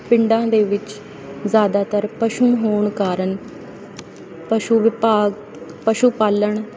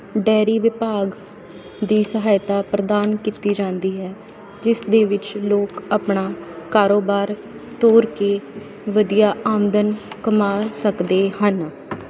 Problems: none marked